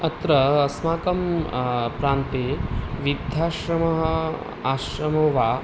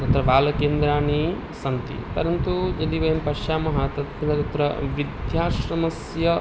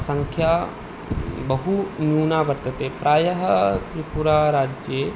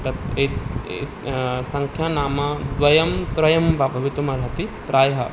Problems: none marked